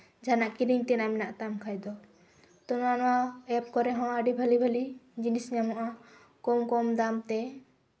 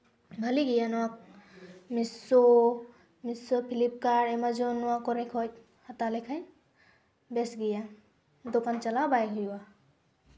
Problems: background sounds at intervals